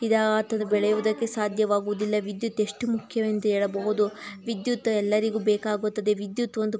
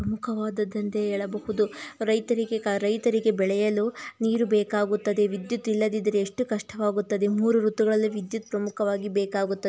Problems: none marked